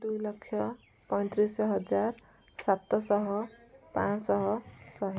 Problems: low volume